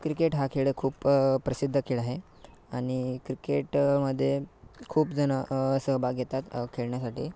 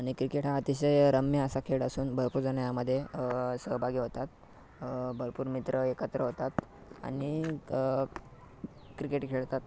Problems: background sounds at intervals